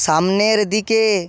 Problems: none marked